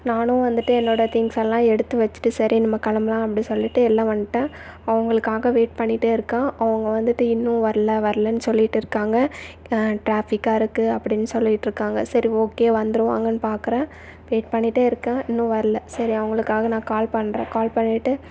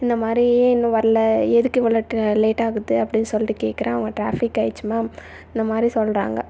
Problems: none marked